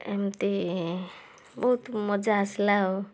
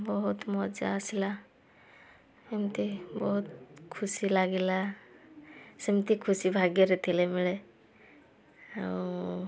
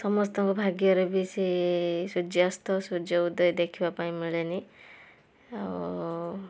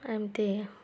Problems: background sounds at intervals, background conversations at intervals